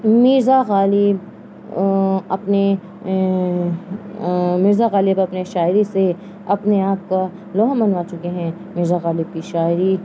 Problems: constant background noise